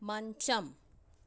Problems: low volume